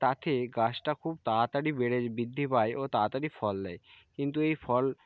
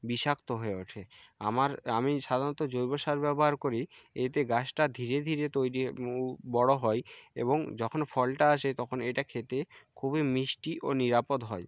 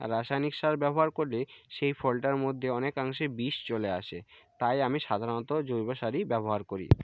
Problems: none marked